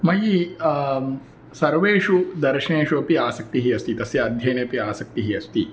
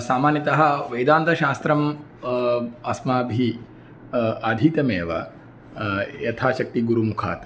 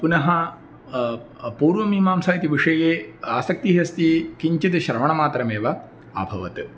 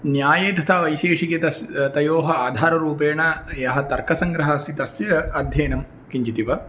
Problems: none marked